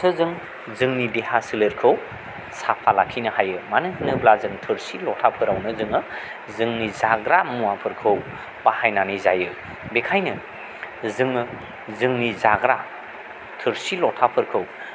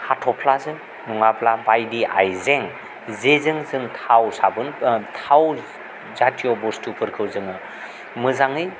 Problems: constant background noise